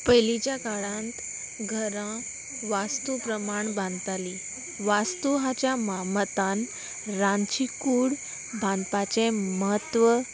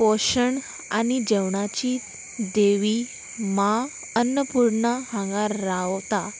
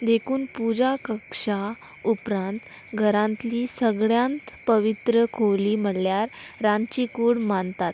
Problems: none marked